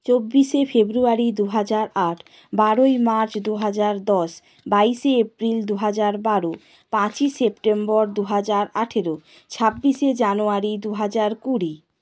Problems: none marked